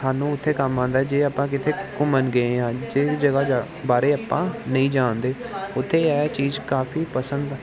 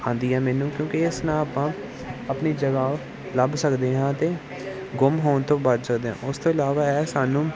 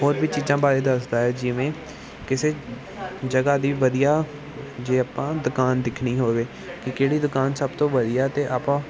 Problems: none marked